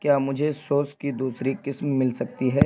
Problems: constant background noise